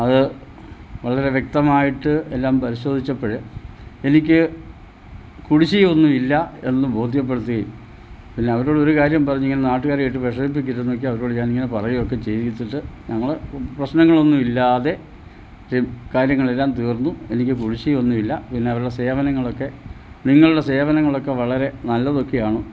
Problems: low volume